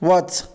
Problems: background sounds at intervals